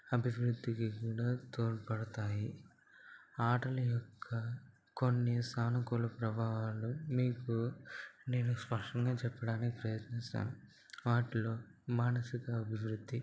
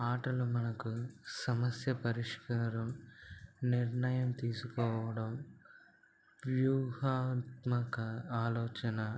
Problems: low volume